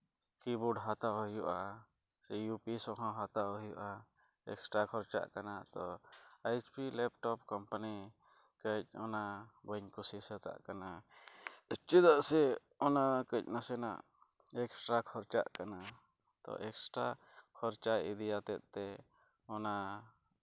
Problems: low volume